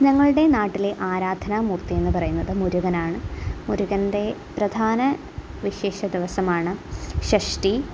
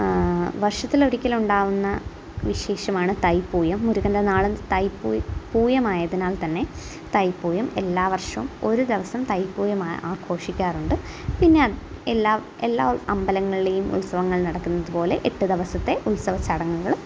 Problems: constant background noise, low volume